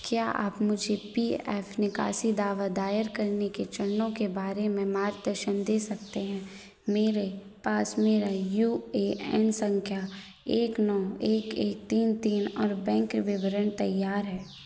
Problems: none marked